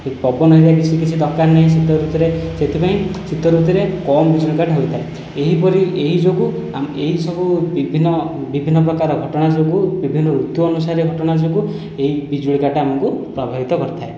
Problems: background sounds at intervals